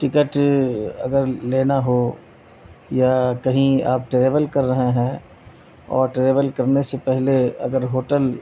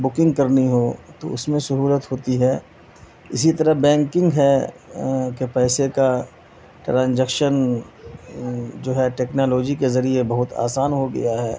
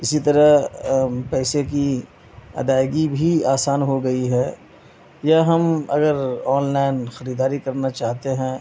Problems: constant background noise